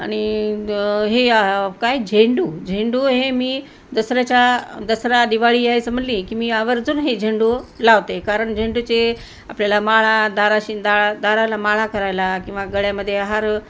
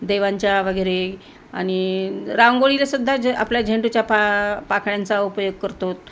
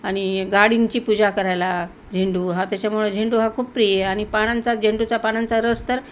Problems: constant background noise